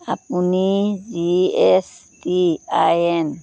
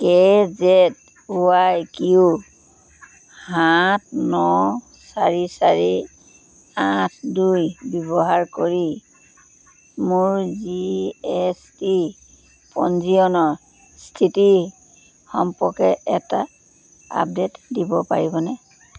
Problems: none marked